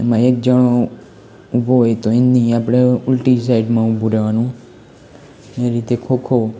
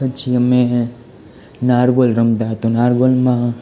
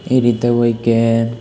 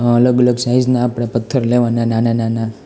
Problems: constant background noise